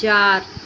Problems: constant background noise